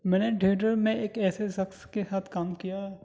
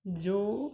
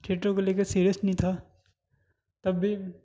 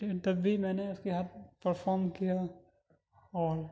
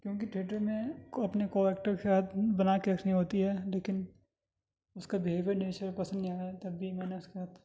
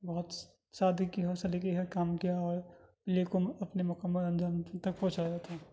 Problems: background sounds at intervals